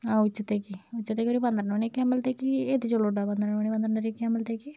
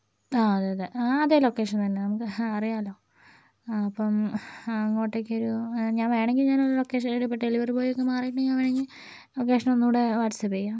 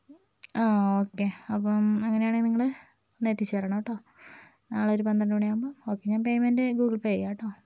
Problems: low volume